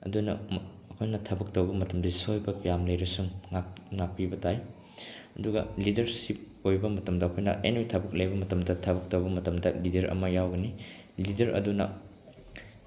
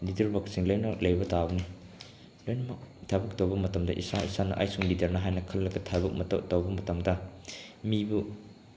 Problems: background sounds at intervals